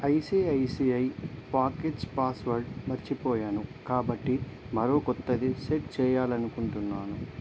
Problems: constant background noise